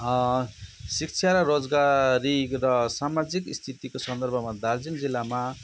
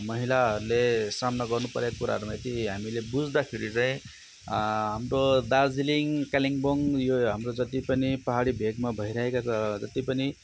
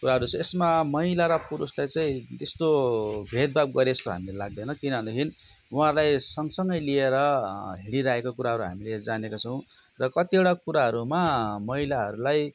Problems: constant background noise